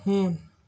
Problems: background sounds at intervals